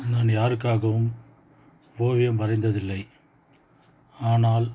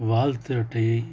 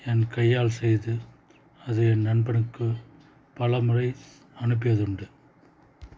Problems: background conversations at intervals